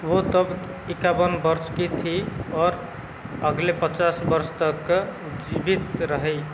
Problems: constant background noise